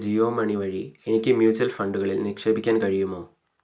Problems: none marked